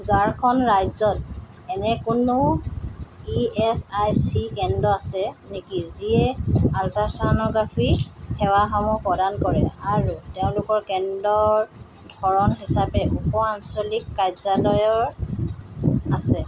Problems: background sounds at intervals